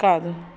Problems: none marked